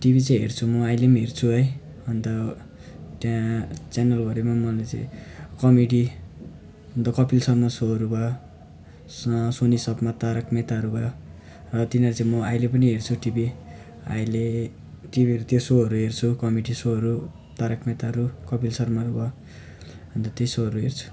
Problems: background sounds at intervals